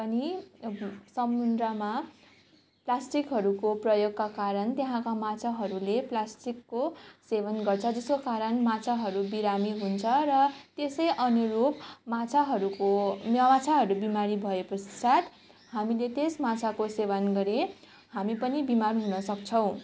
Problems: constant background noise